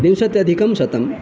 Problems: constant background noise